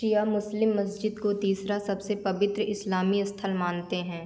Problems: constant background noise